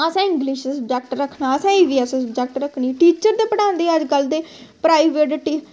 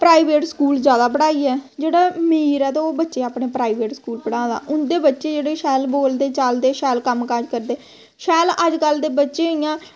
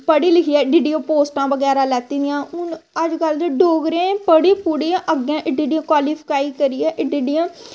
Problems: constant background noise